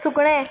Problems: background sounds at intervals